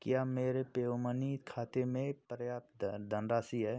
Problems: constant background noise